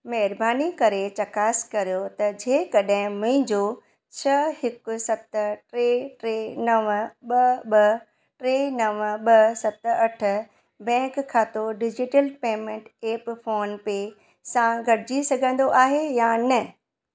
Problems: none marked